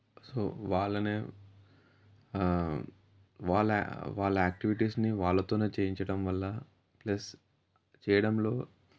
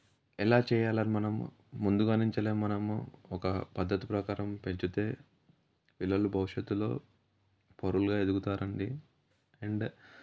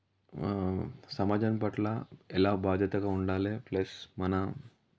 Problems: none marked